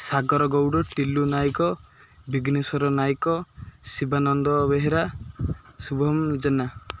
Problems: none marked